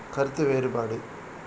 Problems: constant background noise